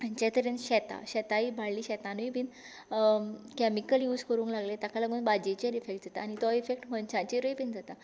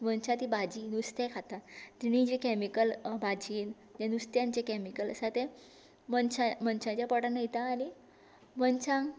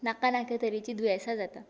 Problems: none marked